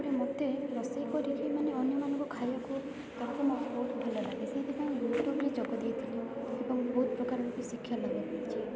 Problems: constant background noise, continuous background conversations